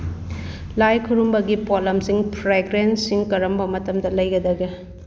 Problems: constant background noise